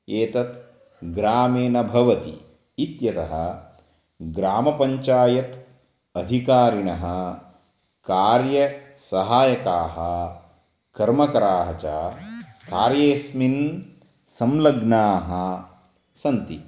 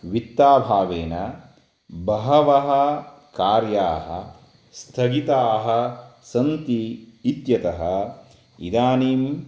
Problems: background sounds at intervals